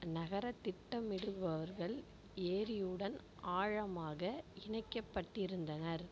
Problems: low volume